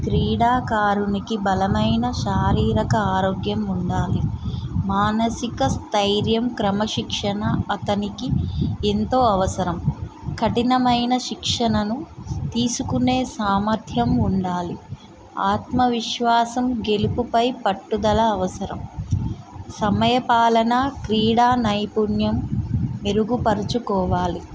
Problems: constant background noise